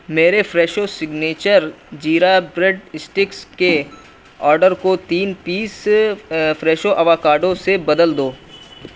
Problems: background sounds at intervals